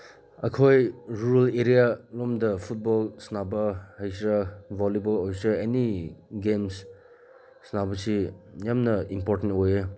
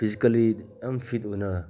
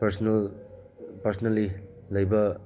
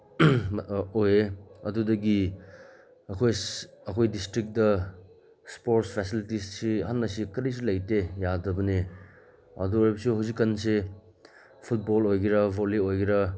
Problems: background sounds at intervals